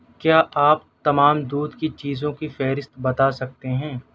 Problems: none marked